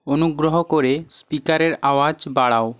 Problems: none marked